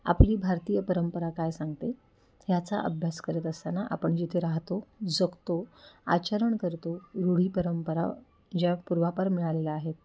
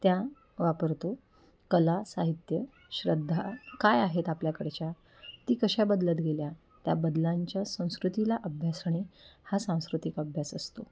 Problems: background sounds at intervals, background conversations at intervals